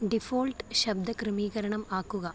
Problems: constant background noise